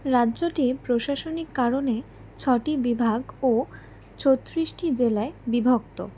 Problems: background sounds at intervals